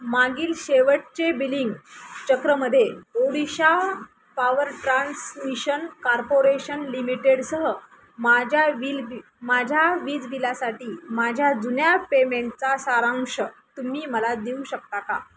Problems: none marked